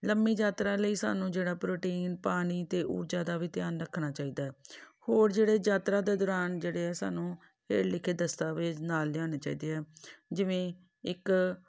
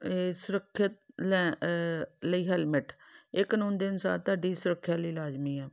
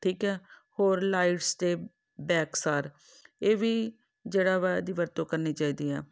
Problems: none marked